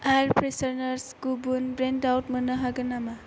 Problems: low volume